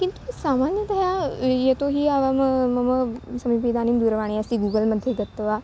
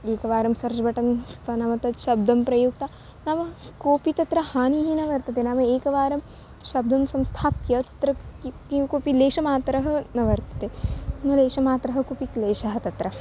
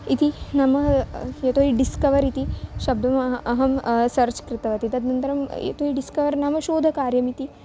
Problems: constant background noise